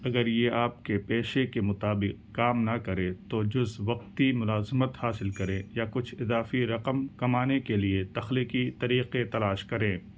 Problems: none marked